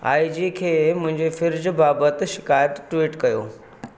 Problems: none marked